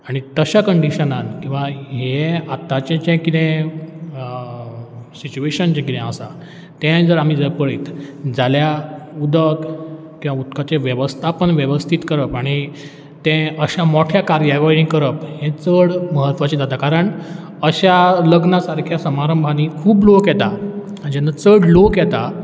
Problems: none marked